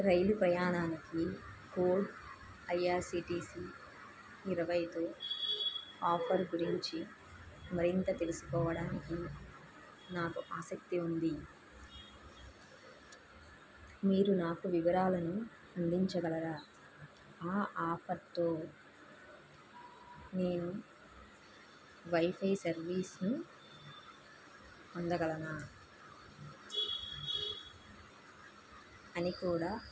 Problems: constant background noise, low volume